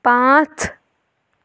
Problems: none marked